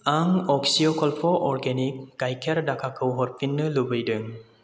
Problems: constant background noise